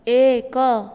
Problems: none marked